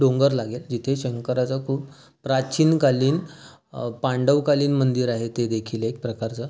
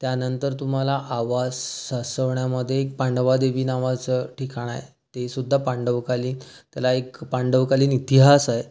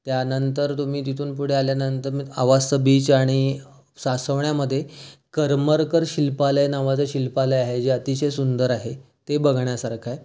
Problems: background sounds at intervals